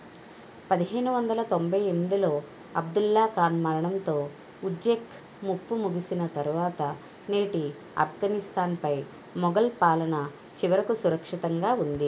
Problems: constant background noise